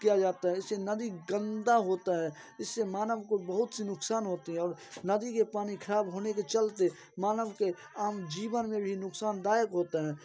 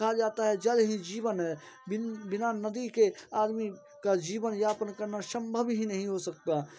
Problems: constant background noise, continuous background conversations